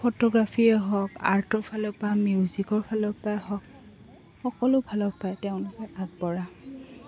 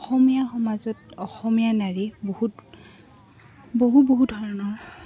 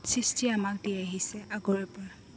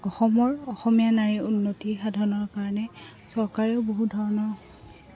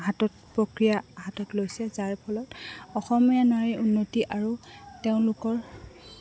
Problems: constant background noise, background conversations at intervals